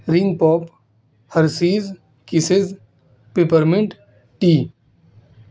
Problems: constant background noise